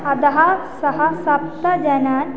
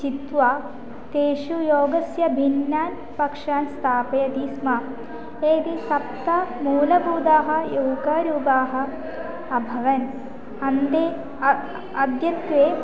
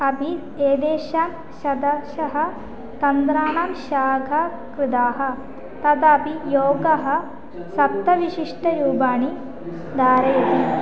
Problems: constant background noise